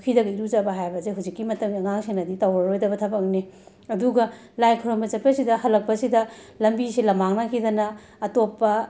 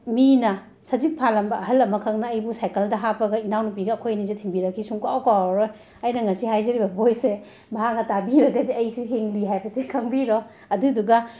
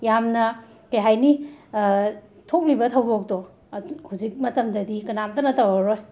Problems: constant background noise